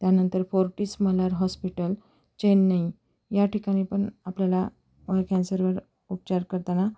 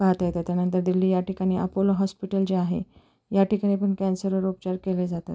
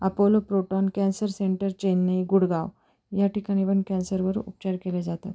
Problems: none marked